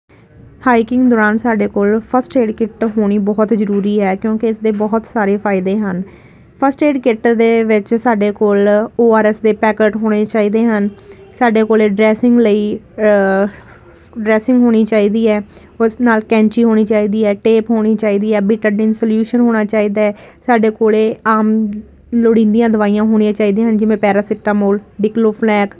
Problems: none marked